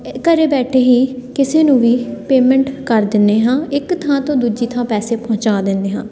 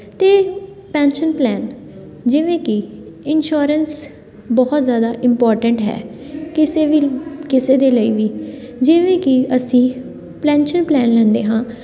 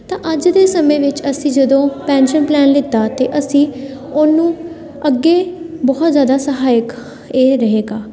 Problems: background sounds at intervals, continuous background conversations